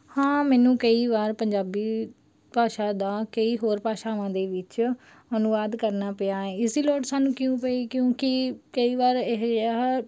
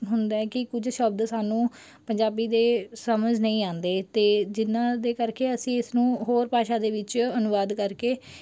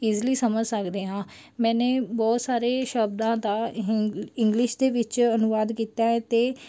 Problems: background sounds at intervals